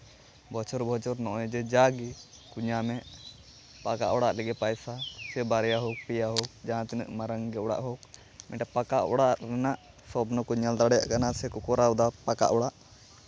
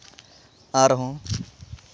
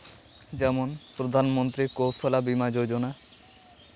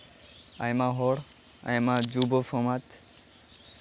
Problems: background sounds at intervals